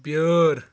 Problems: none marked